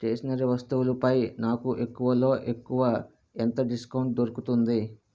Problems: none marked